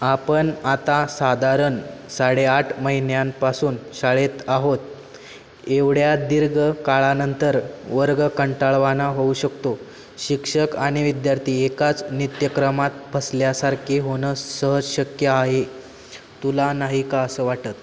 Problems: none marked